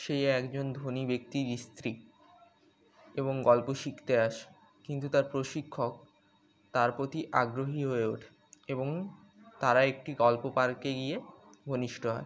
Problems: constant background noise